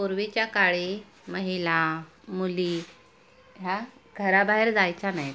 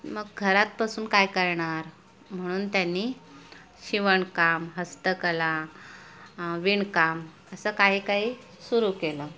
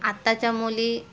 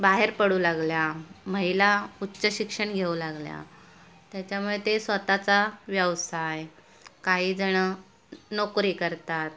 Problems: constant background noise